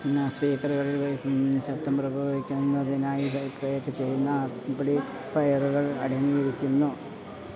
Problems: background sounds at intervals, low volume